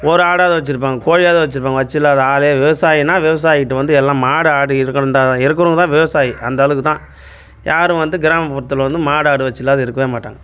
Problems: none marked